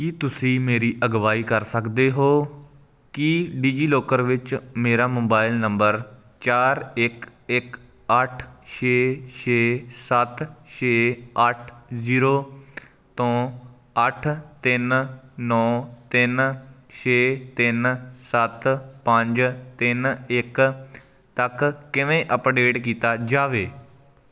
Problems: none marked